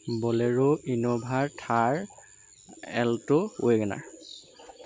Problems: constant background noise